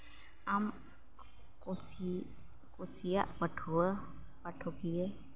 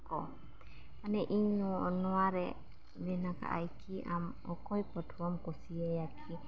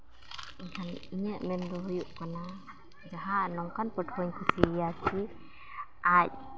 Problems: none marked